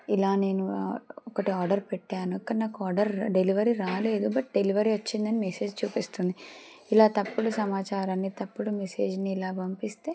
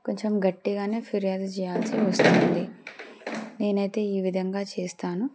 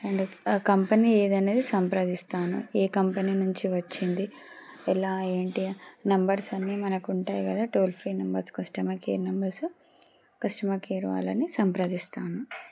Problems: none marked